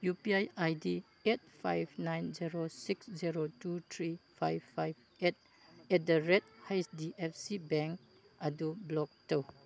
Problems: none marked